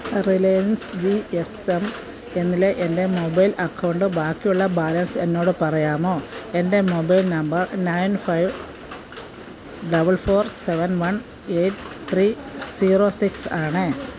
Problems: none marked